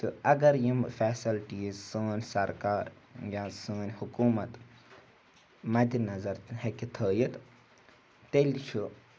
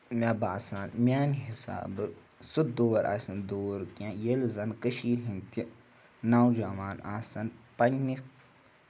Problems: background sounds at intervals